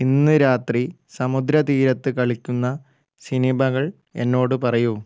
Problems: low volume